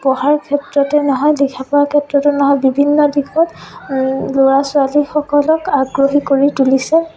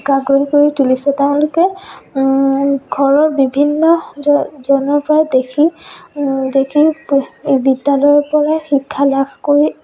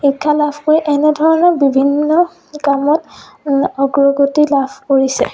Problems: continuous background conversations